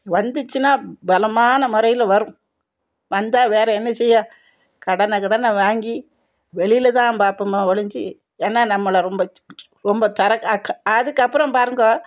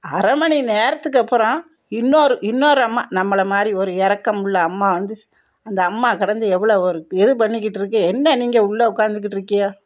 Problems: none marked